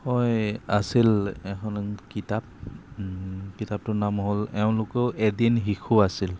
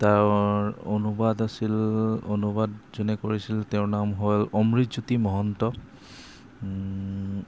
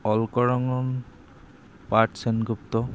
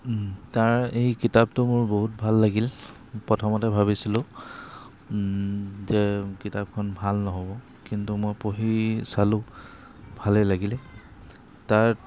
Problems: constant background noise